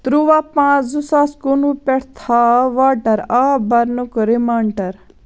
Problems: none marked